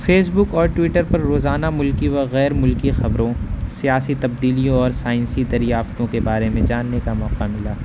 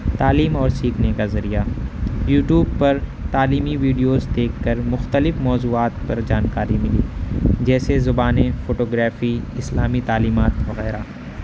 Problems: background sounds at intervals